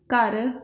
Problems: background sounds at intervals